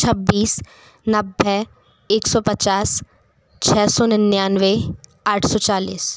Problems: constant background noise